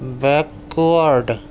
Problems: none marked